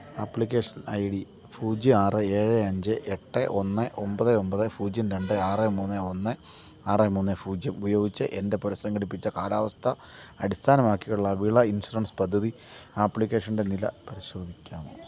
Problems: constant background noise, low volume